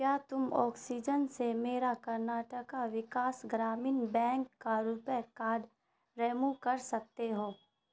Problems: constant background noise